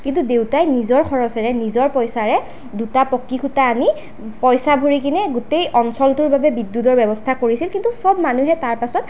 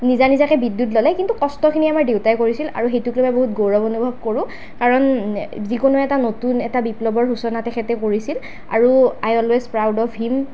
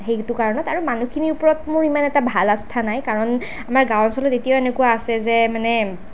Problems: none marked